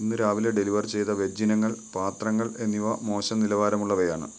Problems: background sounds at intervals